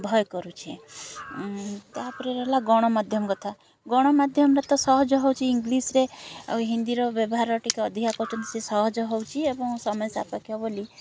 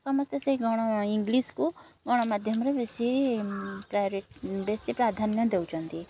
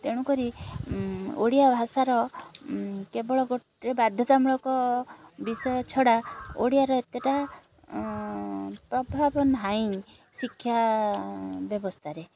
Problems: constant background noise